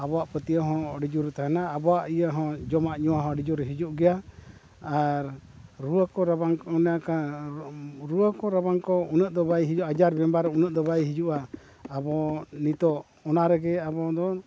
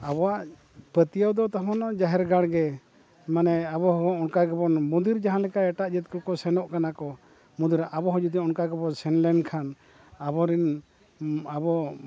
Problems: background sounds at intervals